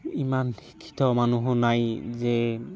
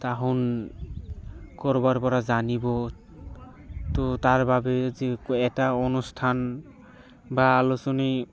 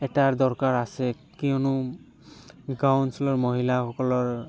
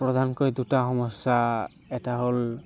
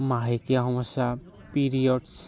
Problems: constant background noise